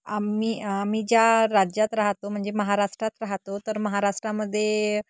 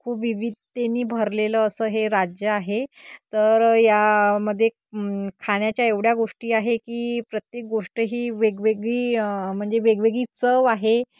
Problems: constant background noise